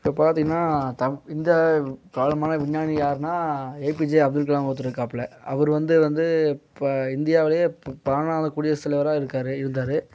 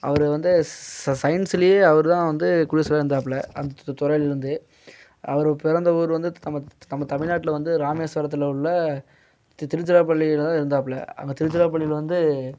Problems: none marked